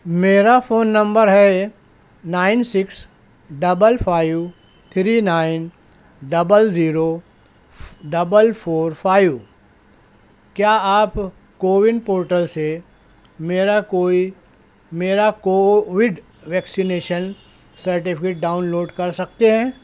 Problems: none marked